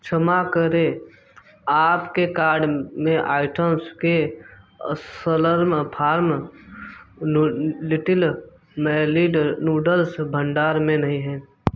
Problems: background sounds at intervals